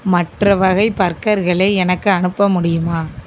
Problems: constant background noise